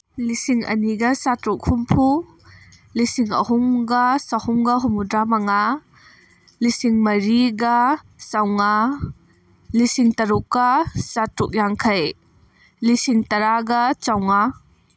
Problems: none marked